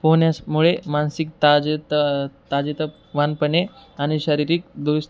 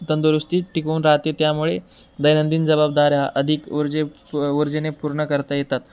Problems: constant background noise